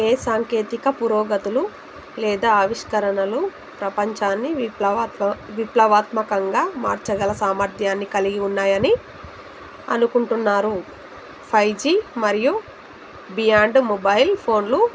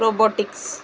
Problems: constant background noise